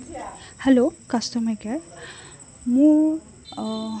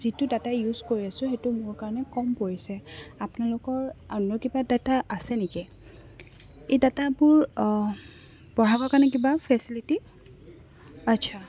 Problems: constant background noise, background conversations at intervals